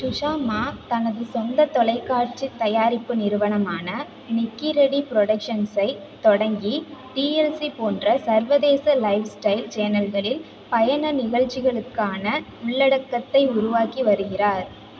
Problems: constant background noise